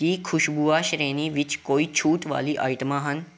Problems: background sounds at intervals